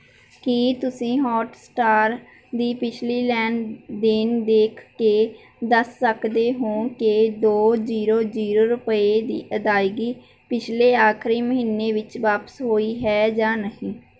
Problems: none marked